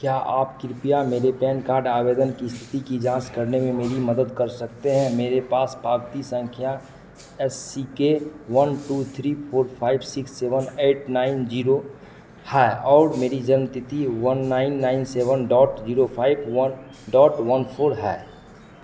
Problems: constant background noise, echo